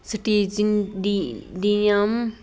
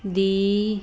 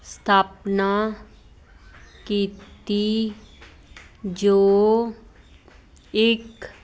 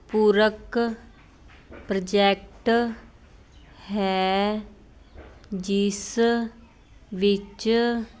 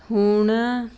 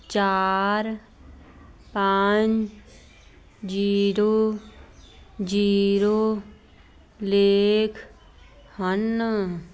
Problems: constant background noise